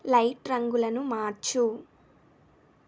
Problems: none marked